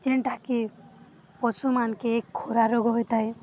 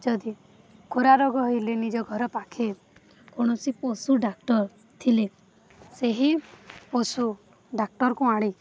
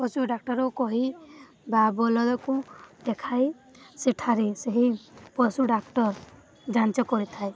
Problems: constant background noise